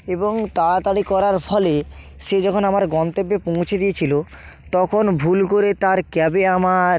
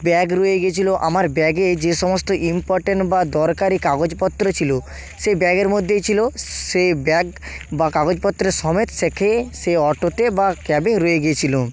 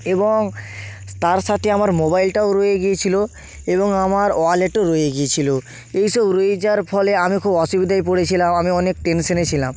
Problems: constant background noise